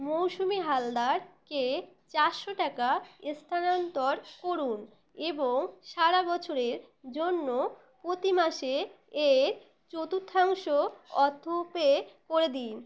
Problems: none marked